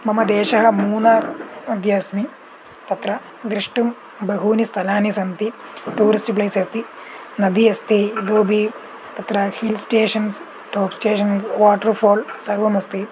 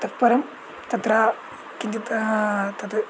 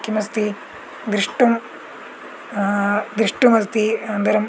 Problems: none marked